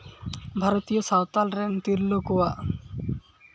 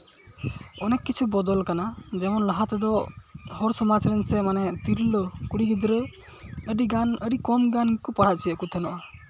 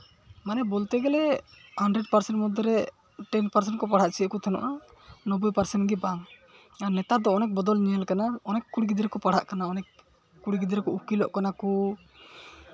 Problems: constant background noise, background conversations at intervals